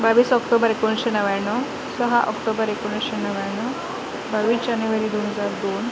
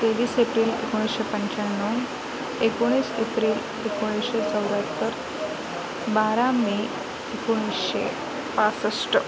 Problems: constant background noise, continuous background conversations